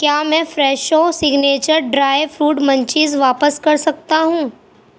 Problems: background sounds at intervals